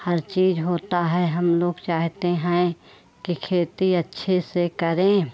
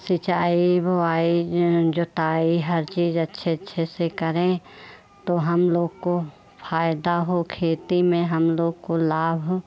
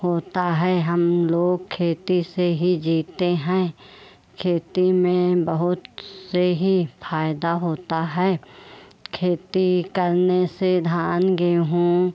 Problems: none marked